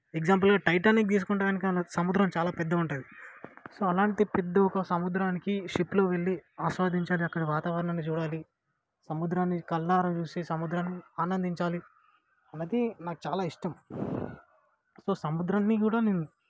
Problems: low volume